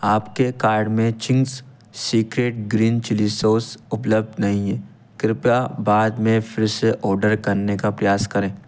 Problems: none marked